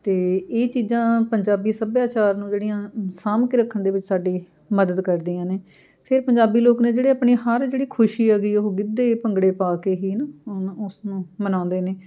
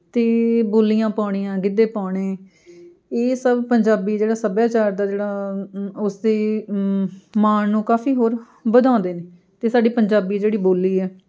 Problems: continuous background conversations